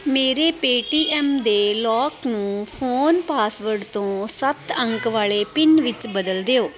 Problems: background sounds at intervals